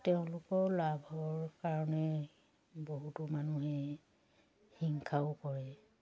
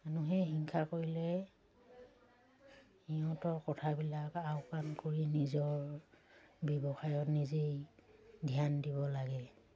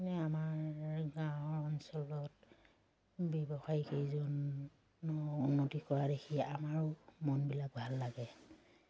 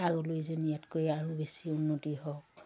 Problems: none marked